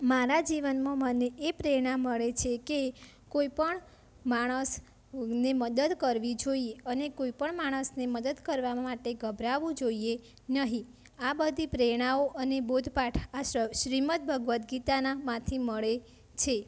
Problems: constant background noise